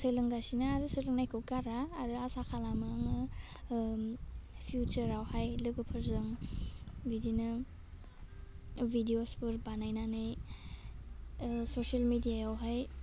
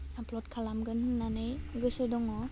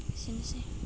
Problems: low volume